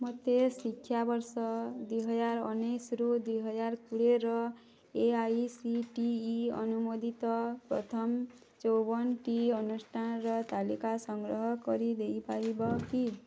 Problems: low volume